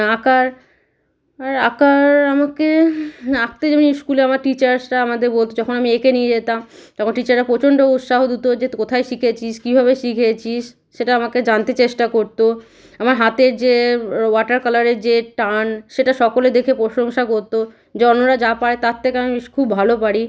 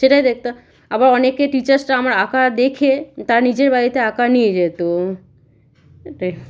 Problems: background sounds at intervals